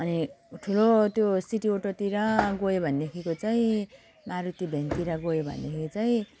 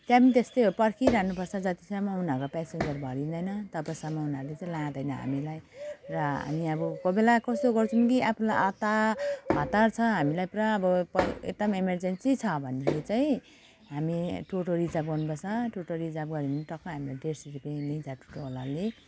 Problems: constant background noise